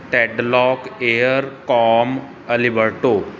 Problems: background sounds at intervals